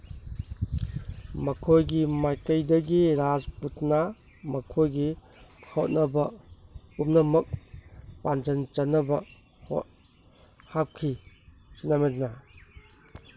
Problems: background conversations at intervals